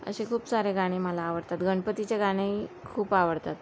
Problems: none marked